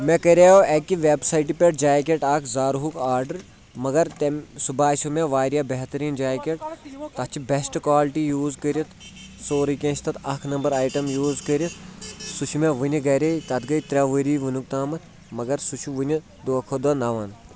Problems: background sounds at intervals, background conversations at intervals